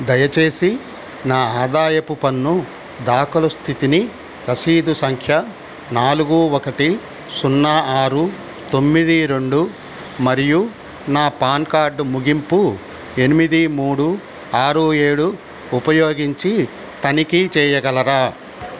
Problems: constant background noise